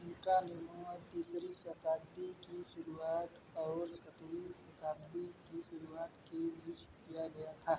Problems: background sounds at intervals